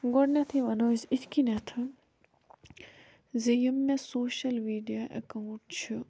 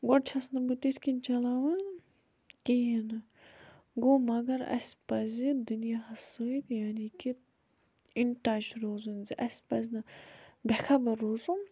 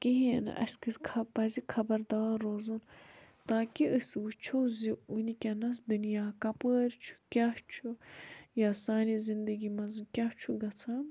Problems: background sounds at intervals